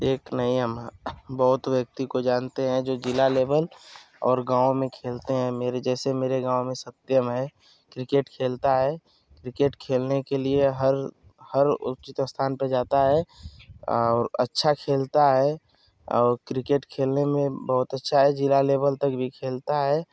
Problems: none marked